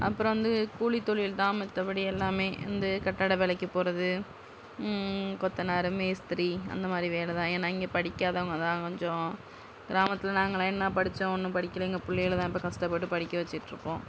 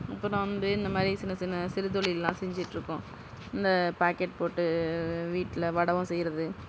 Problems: none marked